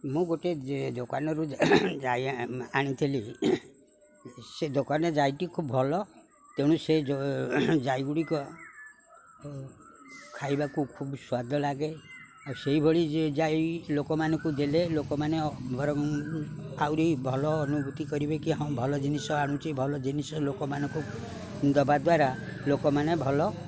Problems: constant background noise, continuous background conversations